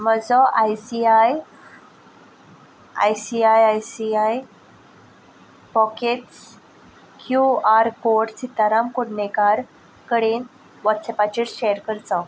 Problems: background sounds at intervals